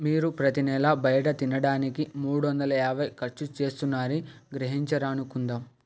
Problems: background sounds at intervals